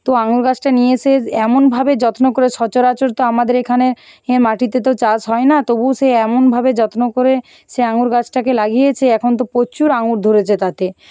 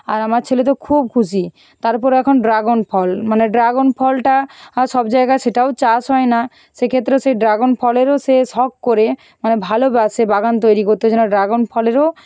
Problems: background sounds at intervals